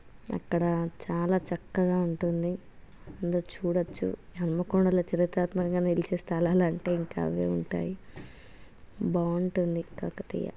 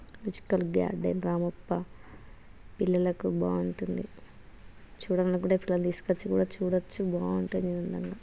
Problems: none marked